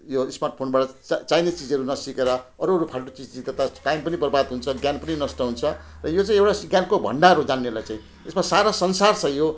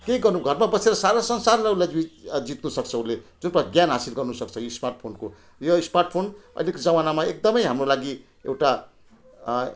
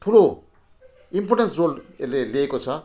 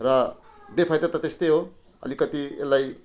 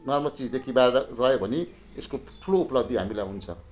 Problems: none marked